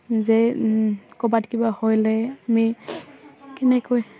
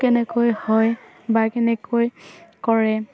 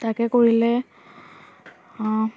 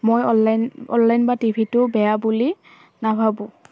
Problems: none marked